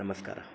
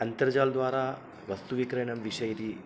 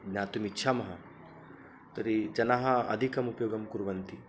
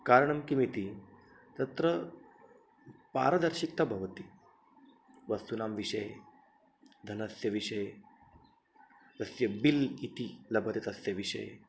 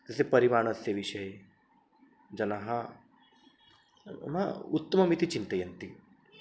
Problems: none marked